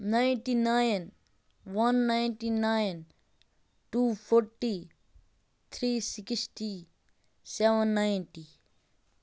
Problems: background sounds at intervals